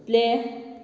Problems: none marked